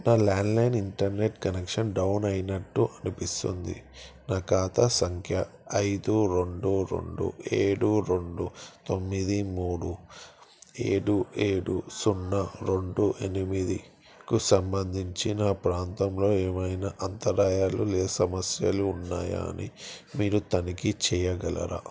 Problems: background sounds at intervals